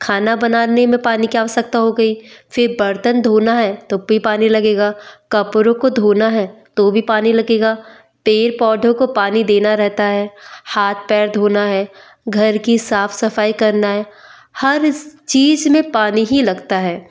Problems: none marked